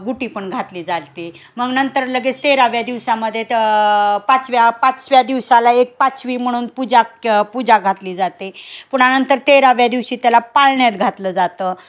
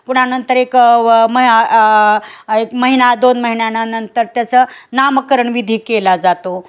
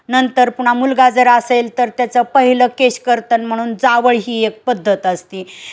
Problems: none marked